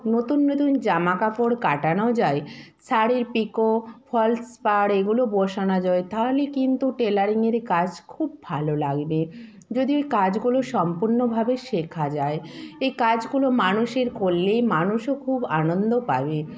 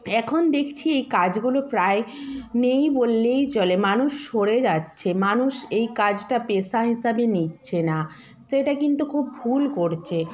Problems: continuous background conversations